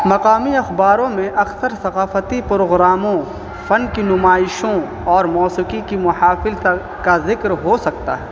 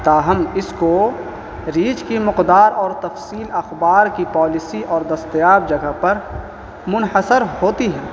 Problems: constant background noise